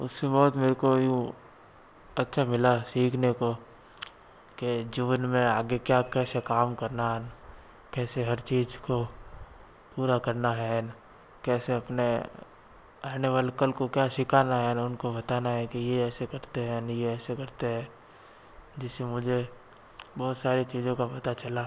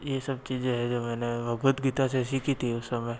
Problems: constant background noise